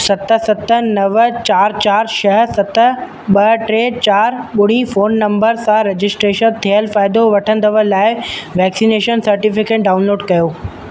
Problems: constant background noise, echo